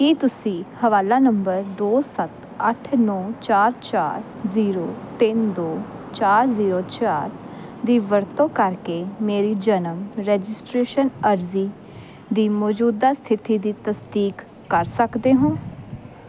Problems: none marked